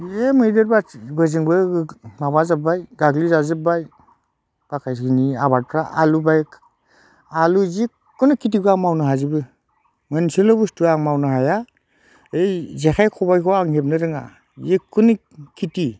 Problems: none marked